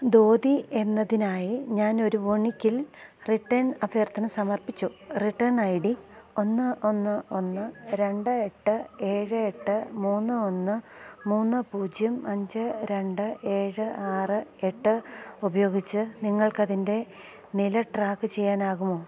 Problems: low volume